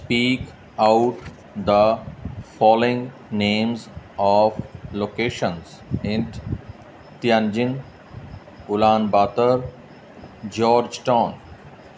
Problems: none marked